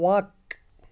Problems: background sounds at intervals